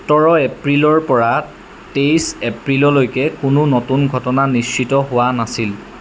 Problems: constant background noise